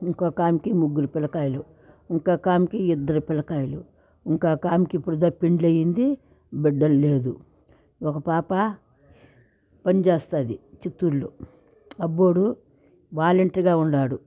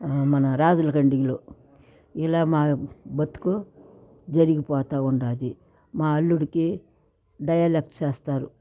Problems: none marked